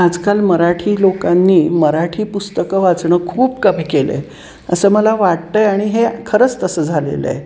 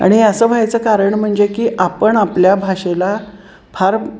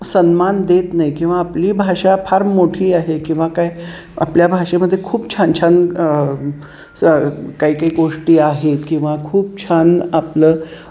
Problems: none marked